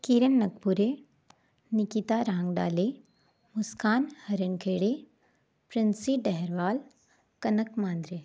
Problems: none marked